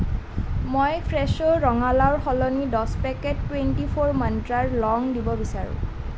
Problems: none marked